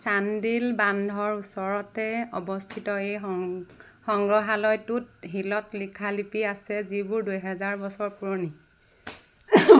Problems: none marked